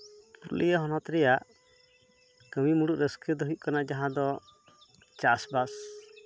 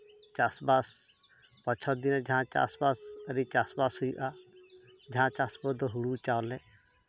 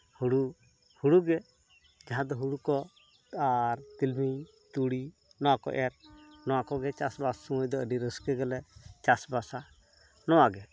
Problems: constant background noise